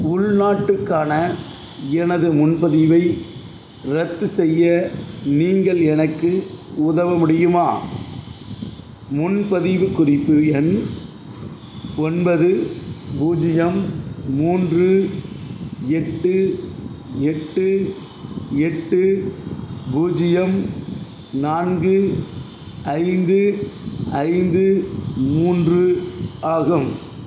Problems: none marked